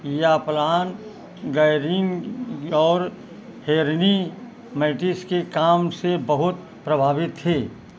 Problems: constant background noise